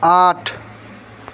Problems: constant background noise